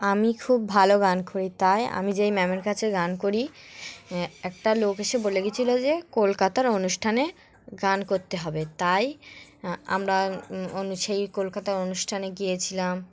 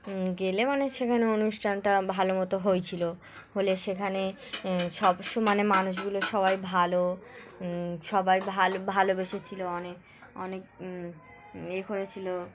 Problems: none marked